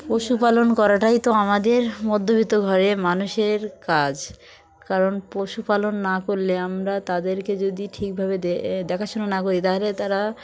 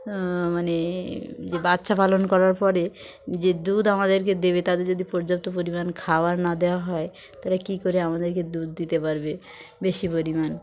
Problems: none marked